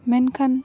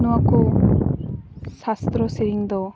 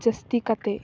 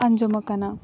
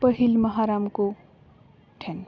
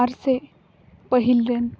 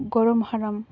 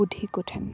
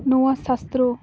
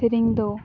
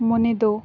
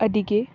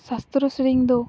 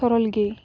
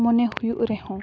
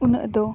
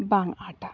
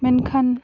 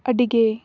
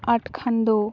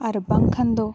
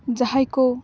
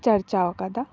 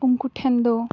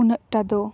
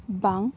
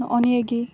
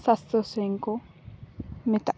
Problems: constant background noise, background conversations at intervals